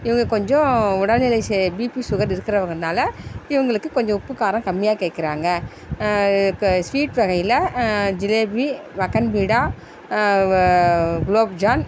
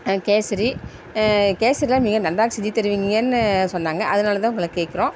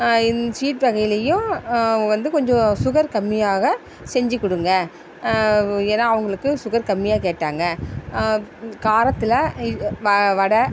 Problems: constant background noise